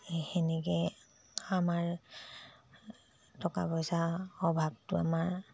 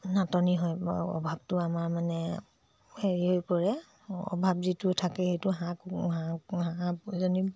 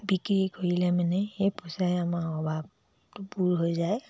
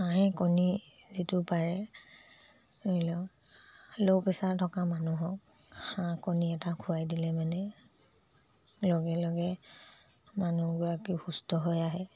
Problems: low volume